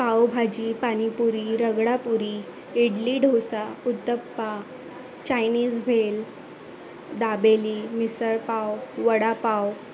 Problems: constant background noise, background conversations at intervals